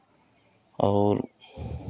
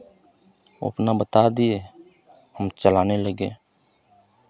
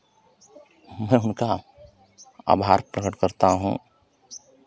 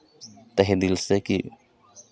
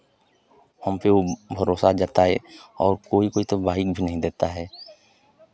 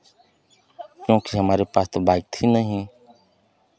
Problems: constant background noise, background conversations at intervals